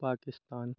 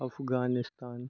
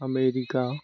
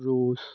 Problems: constant background noise